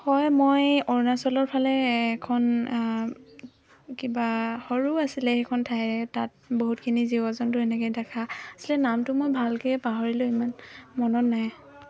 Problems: constant background noise